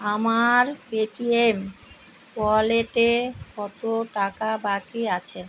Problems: constant background noise